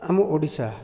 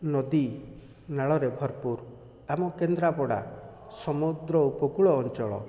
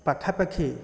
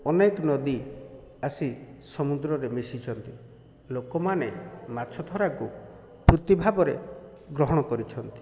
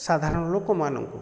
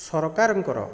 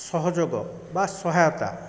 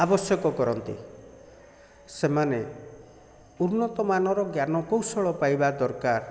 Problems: none marked